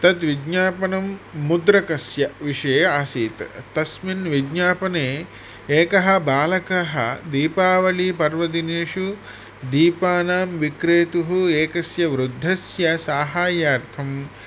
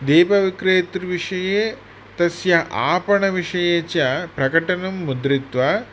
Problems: none marked